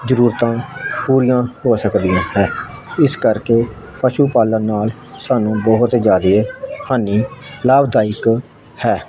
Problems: constant background noise